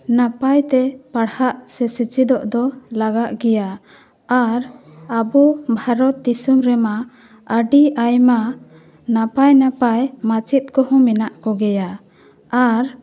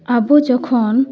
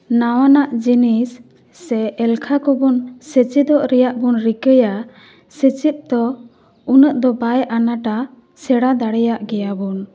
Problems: none marked